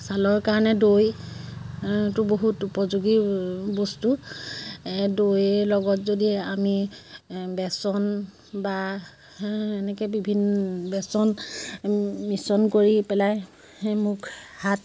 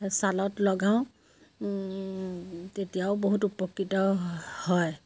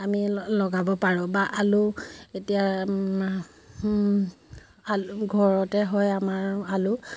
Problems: constant background noise